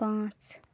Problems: background sounds at intervals